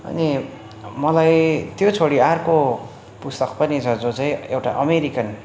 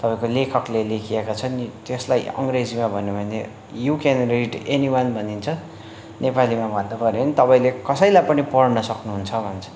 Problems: constant background noise